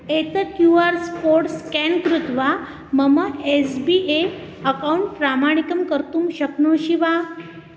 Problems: constant background noise